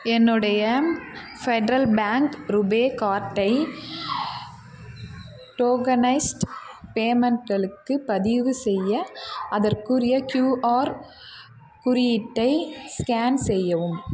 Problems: constant background noise